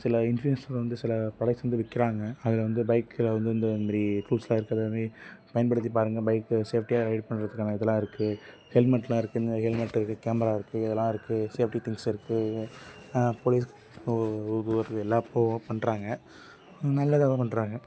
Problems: background sounds at intervals